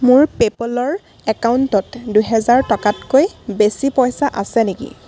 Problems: constant background noise